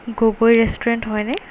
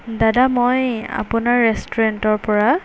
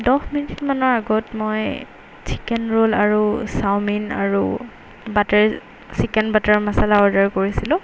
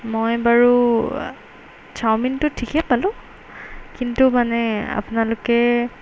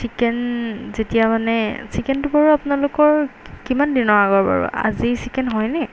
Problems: background sounds at intervals